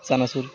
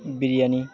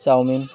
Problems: none marked